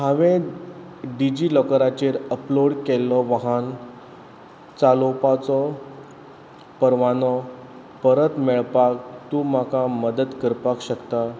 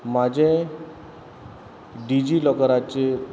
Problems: background sounds at intervals